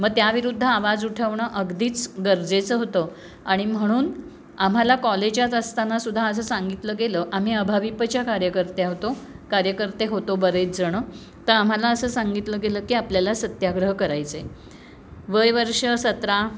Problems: constant background noise, background conversations at intervals